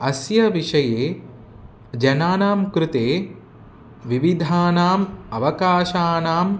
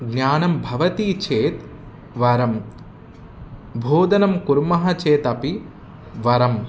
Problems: constant background noise